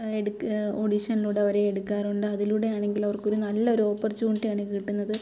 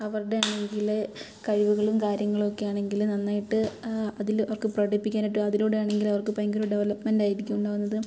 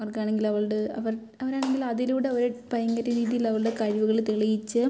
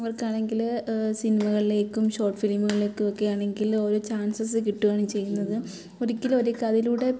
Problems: background sounds at intervals